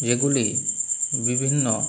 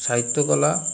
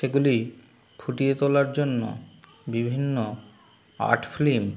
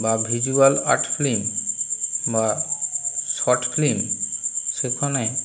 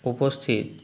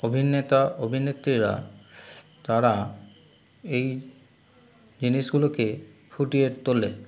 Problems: constant background noise